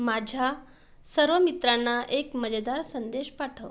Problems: background sounds at intervals